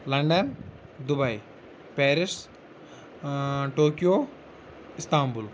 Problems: constant background noise